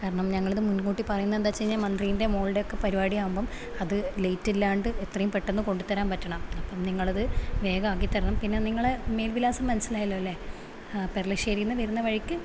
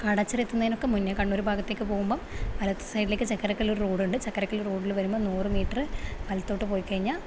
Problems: constant background noise